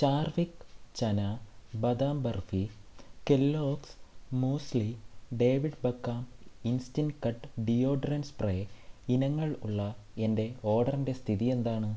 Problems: low volume